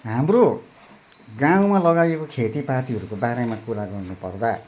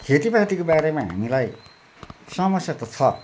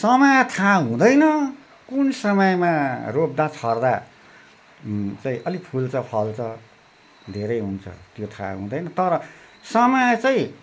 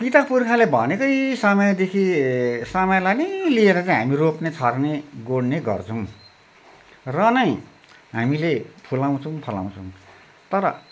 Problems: constant background noise